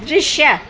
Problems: constant background noise, low volume